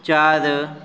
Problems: none marked